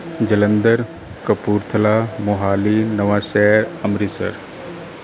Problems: background conversations at intervals